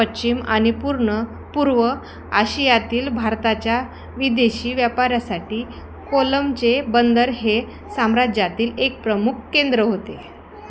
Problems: constant background noise, background conversations at intervals